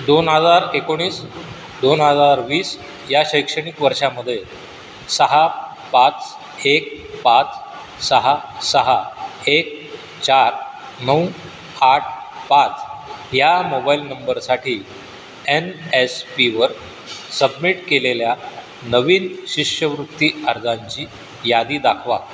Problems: none marked